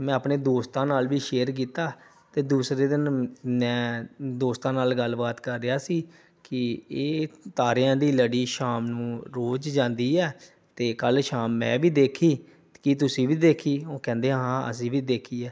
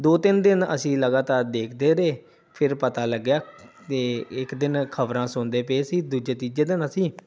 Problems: background sounds at intervals